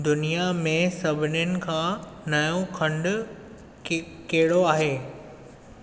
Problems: constant background noise, echo